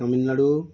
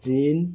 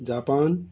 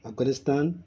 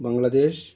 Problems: background sounds at intervals